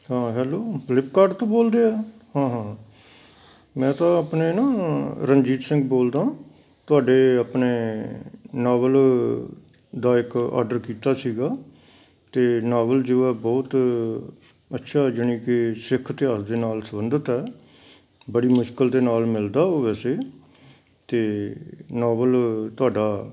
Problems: background sounds at intervals